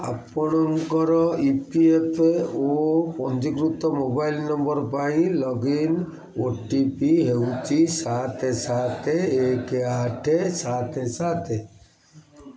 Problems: constant background noise, continuous background conversations